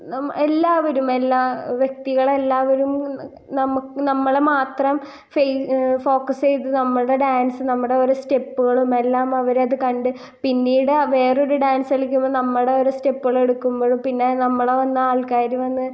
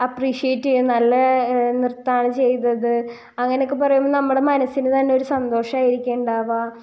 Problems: none marked